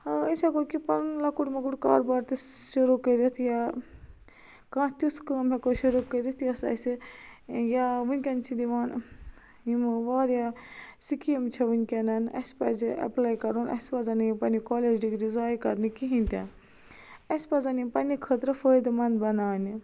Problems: none marked